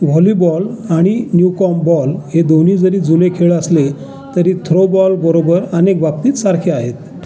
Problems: background sounds at intervals, continuous background conversations